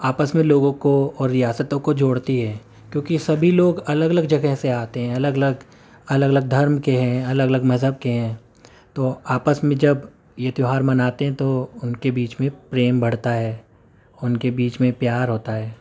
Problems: none marked